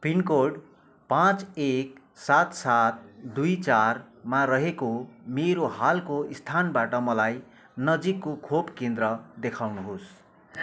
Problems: none marked